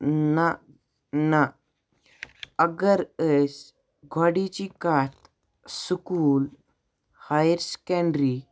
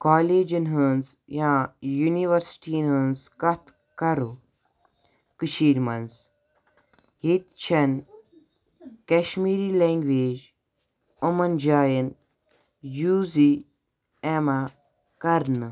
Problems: none marked